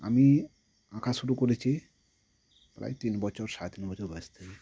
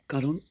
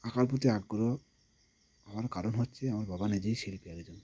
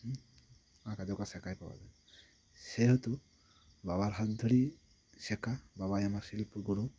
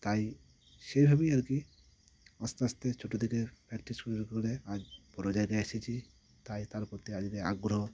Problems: none marked